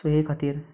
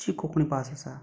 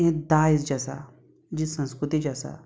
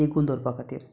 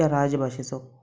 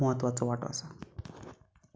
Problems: none marked